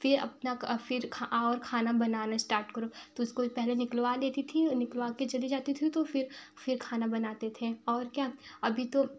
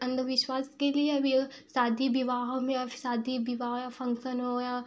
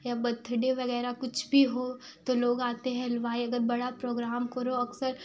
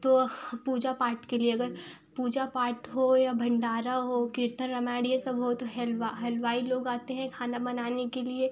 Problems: background sounds at intervals